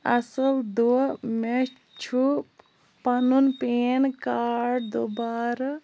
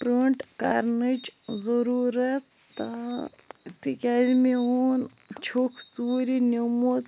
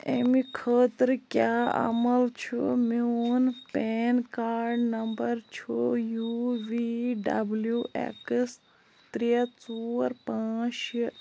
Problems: none marked